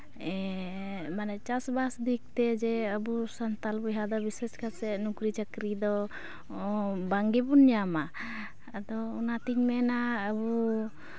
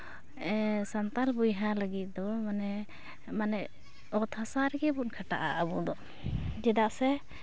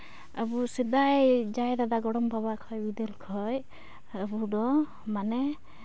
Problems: background sounds at intervals